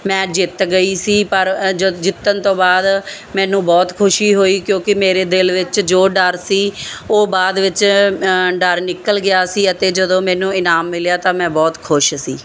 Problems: none marked